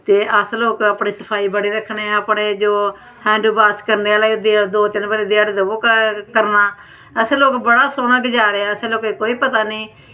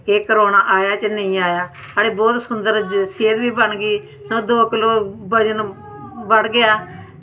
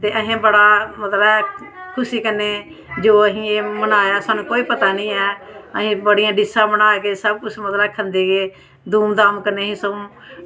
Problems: constant background noise